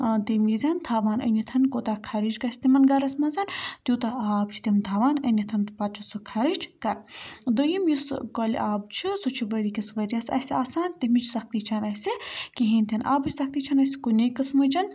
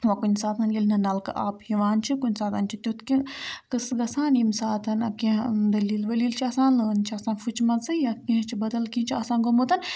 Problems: none marked